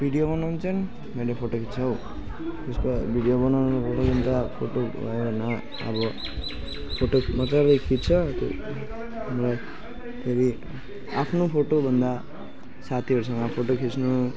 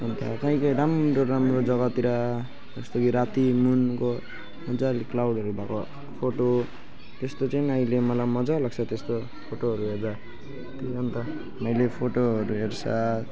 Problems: background sounds at intervals, background conversations at intervals